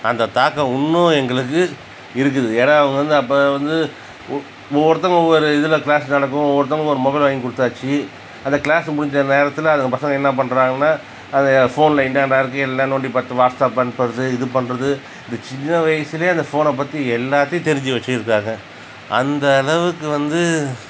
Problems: constant background noise